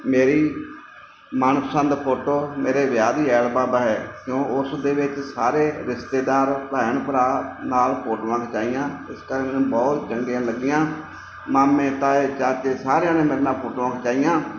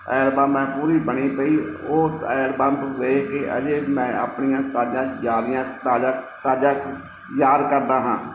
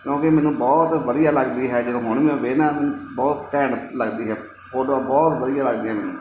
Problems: background sounds at intervals